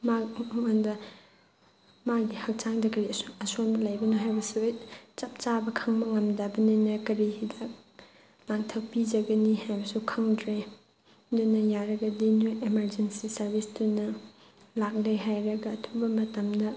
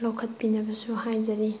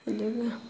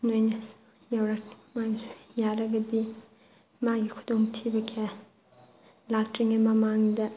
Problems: background conversations at intervals